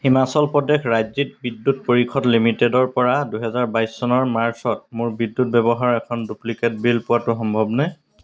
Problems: background sounds at intervals